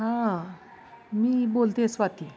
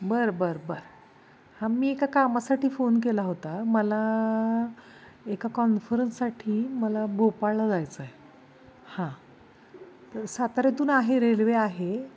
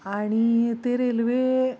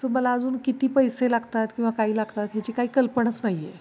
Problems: none marked